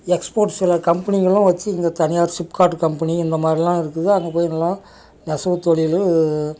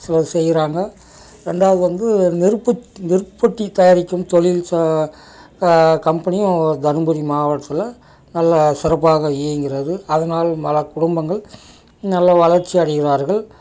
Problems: background sounds at intervals